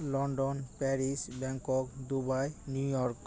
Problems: background conversations at intervals